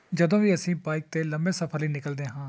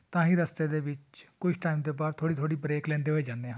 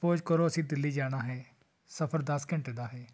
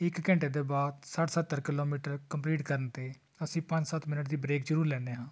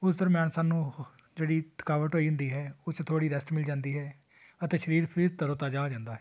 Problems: constant background noise